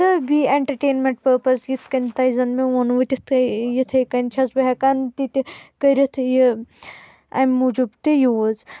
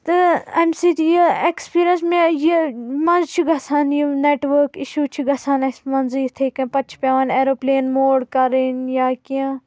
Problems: constant background noise